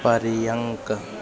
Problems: constant background noise